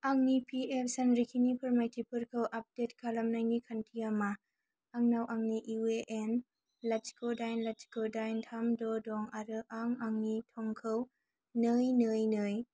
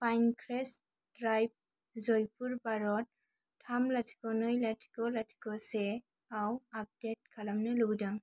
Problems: low volume